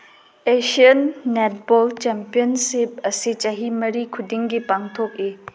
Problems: background sounds at intervals